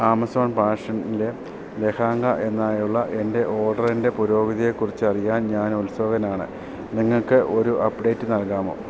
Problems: constant background noise